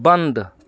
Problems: constant background noise